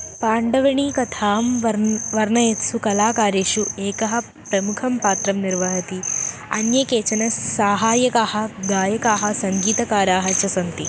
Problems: constant background noise